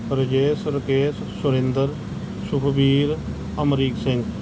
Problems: none marked